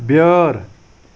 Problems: none marked